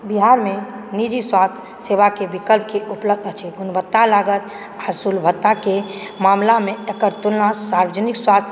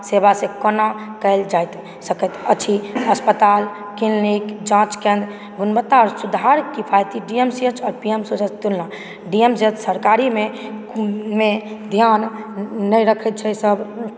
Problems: background sounds at intervals